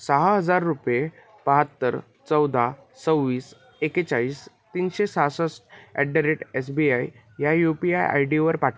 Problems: none marked